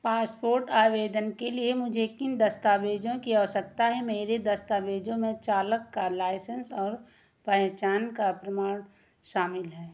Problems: constant background noise